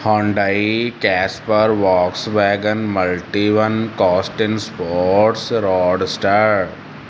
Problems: constant background noise